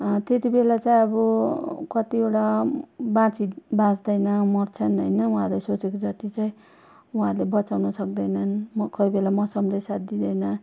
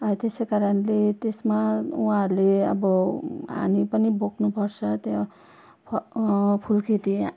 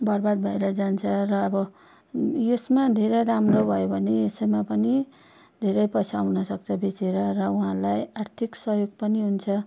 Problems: none marked